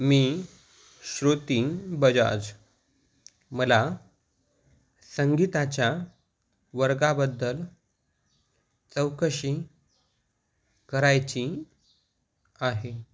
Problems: constant background noise